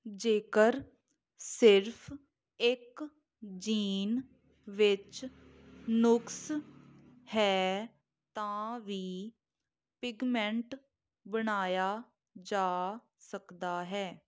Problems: none marked